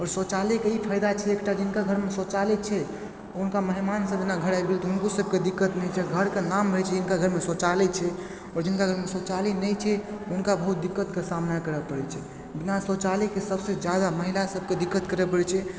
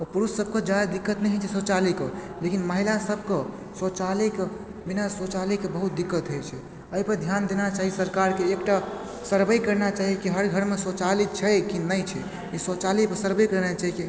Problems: background sounds at intervals, background conversations at intervals